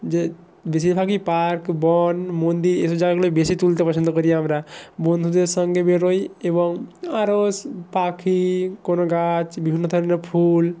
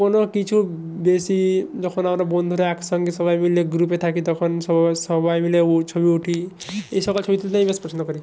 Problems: none marked